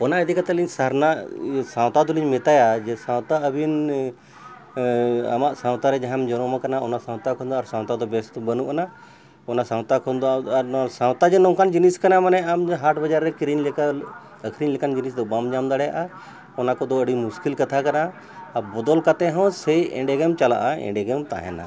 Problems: background sounds at intervals, background conversations at intervals